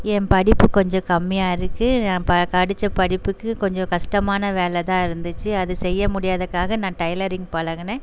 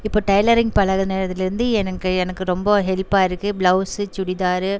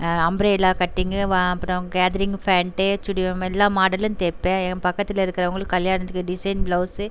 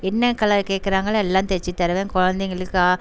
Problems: constant background noise